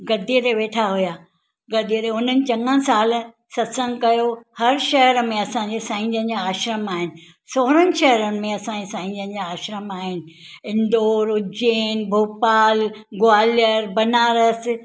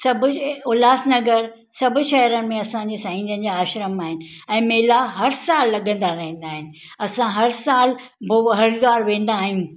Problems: none marked